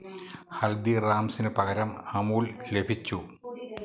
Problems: low volume